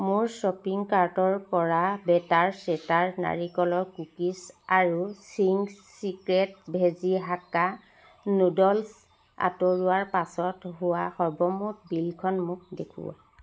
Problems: background sounds at intervals